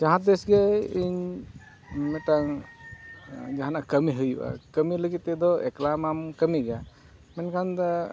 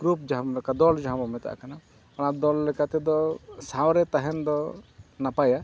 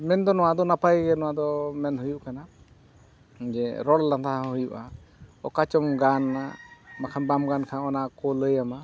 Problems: none marked